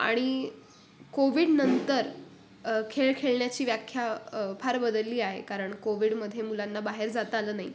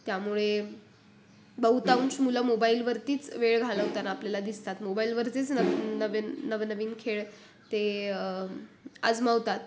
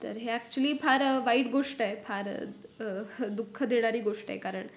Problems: constant background noise